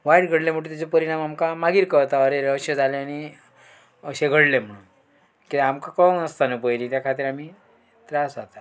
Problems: background sounds at intervals